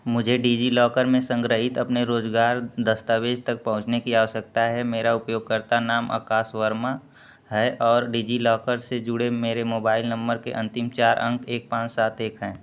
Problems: none marked